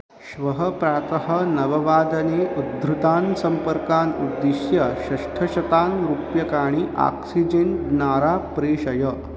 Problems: constant background noise